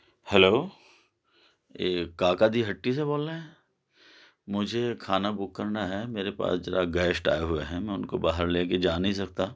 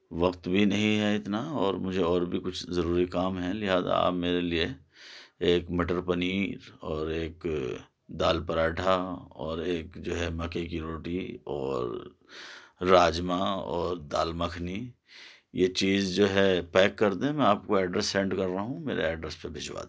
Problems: none marked